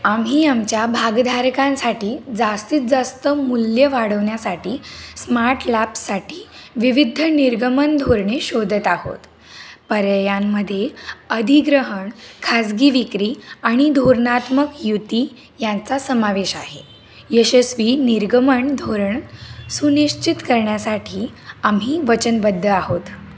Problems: constant background noise